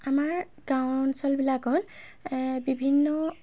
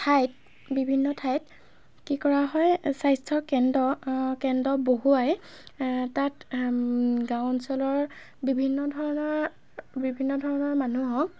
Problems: constant background noise